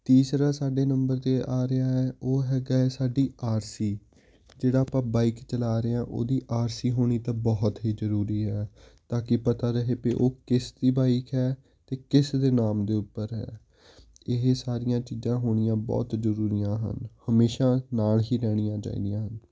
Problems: none marked